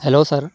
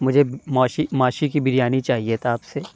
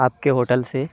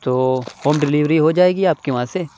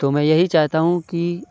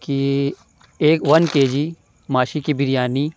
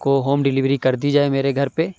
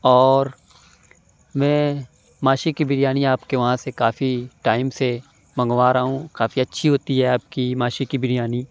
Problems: none marked